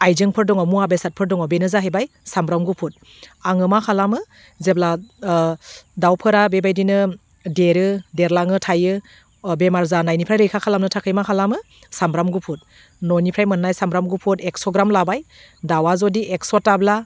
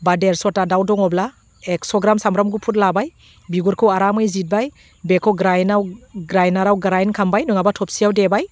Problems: none marked